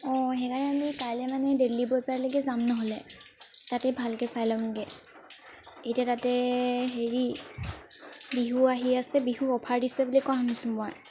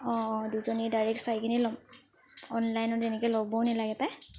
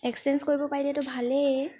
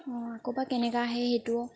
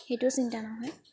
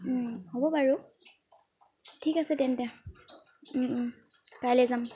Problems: constant background noise